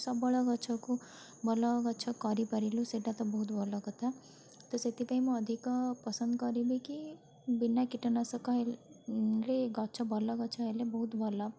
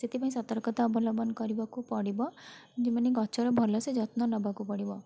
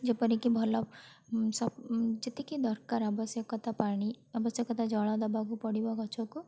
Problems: none marked